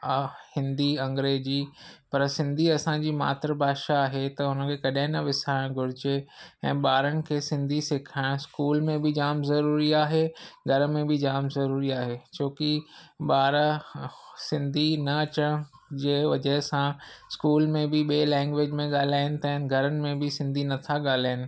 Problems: none marked